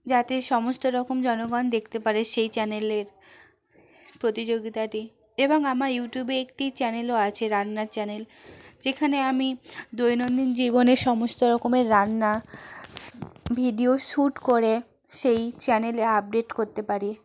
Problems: none marked